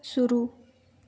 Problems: none marked